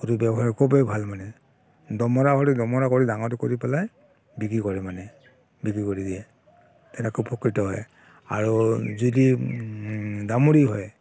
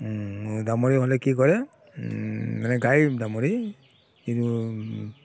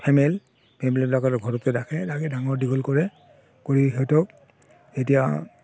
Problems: constant background noise